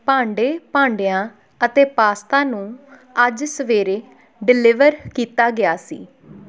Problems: background conversations at intervals